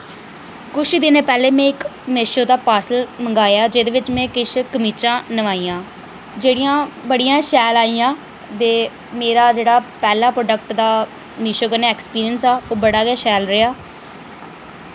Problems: none marked